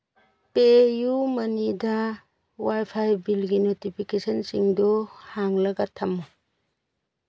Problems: background sounds at intervals